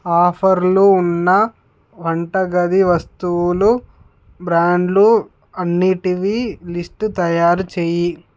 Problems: none marked